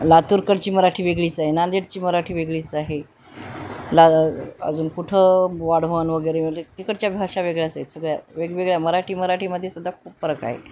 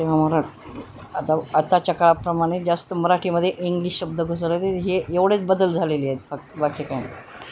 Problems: none marked